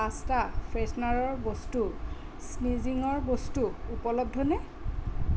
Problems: constant background noise